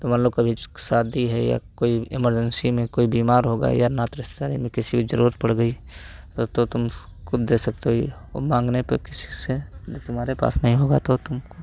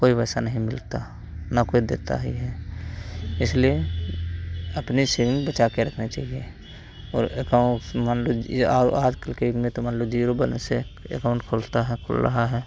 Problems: constant background noise, background conversations at intervals